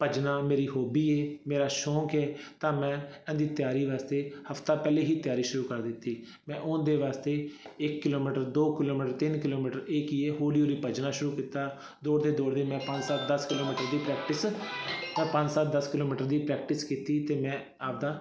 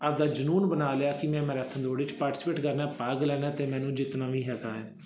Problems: background sounds at intervals